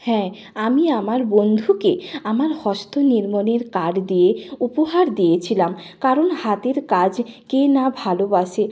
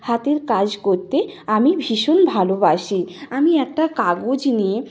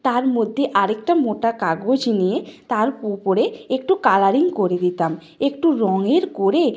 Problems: background sounds at intervals